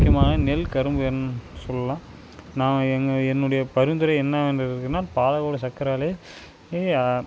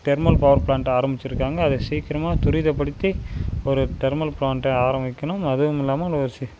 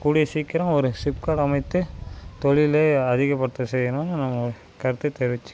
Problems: constant background noise